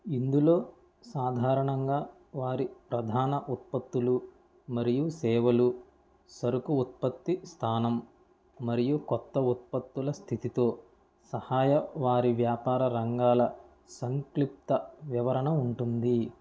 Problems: low volume